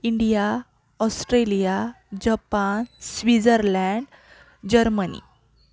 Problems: background sounds at intervals, background conversations at intervals